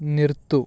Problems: none marked